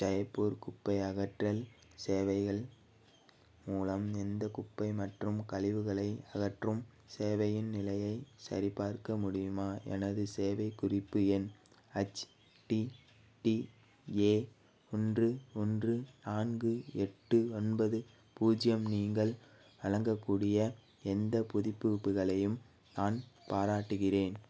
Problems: background sounds at intervals